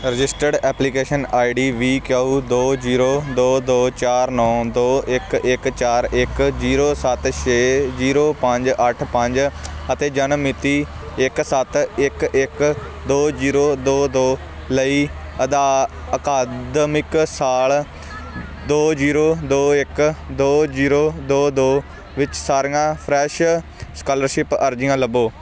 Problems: constant background noise